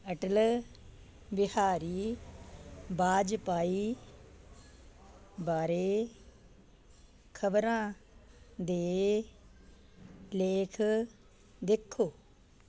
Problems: none marked